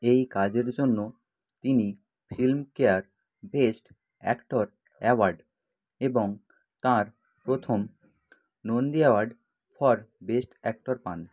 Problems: continuous background conversations